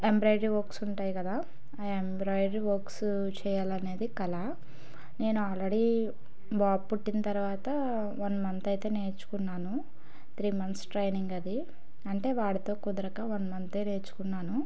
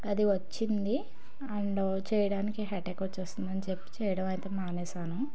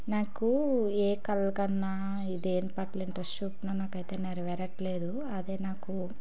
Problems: background sounds at intervals